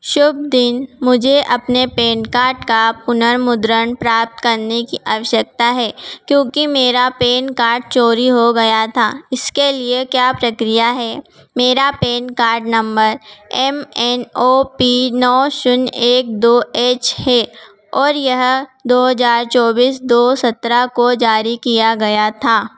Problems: none marked